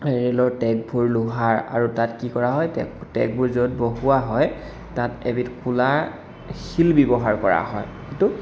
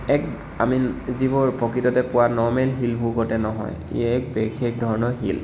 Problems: echo